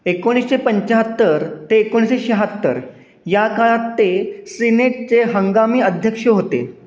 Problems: none marked